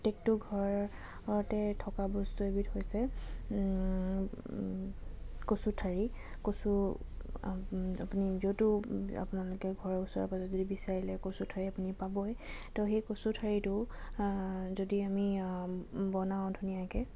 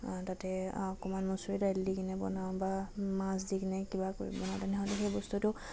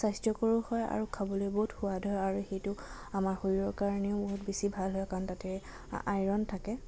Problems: none marked